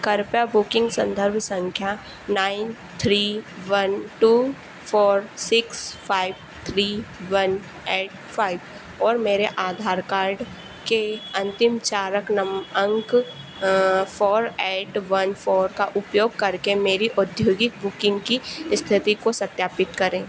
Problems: constant background noise